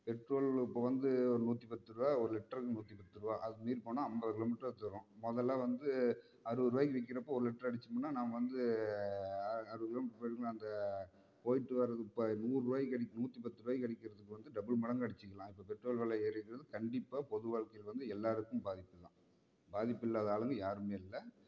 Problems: low volume